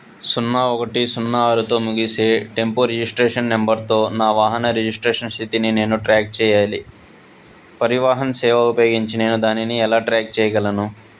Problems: none marked